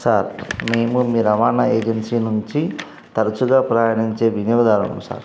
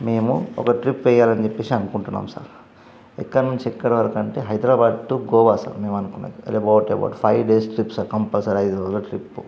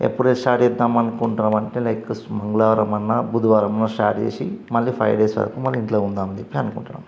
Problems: none marked